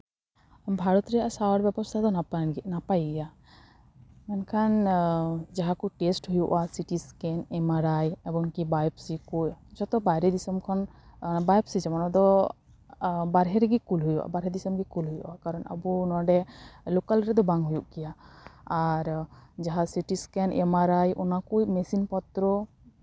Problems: background sounds at intervals